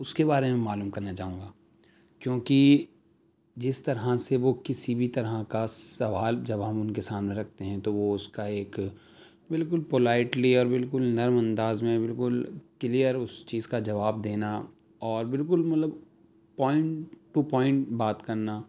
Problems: none marked